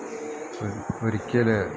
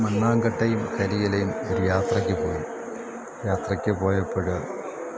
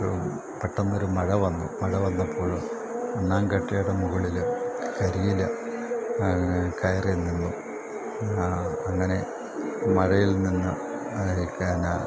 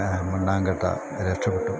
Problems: constant background noise